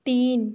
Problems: constant background noise